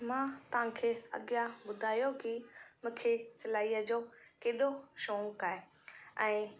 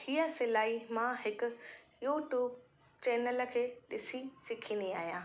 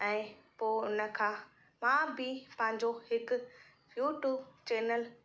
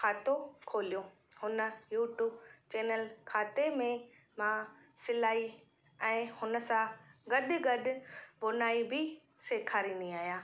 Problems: constant background noise, echo